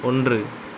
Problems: none marked